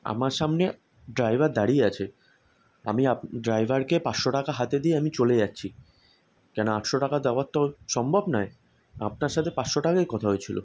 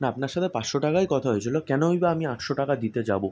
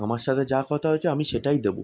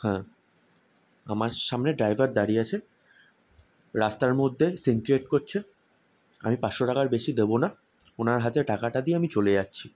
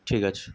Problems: constant background noise